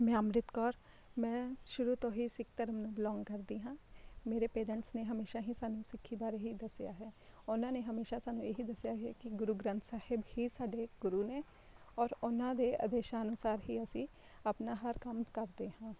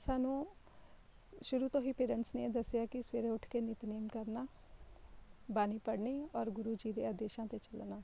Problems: none marked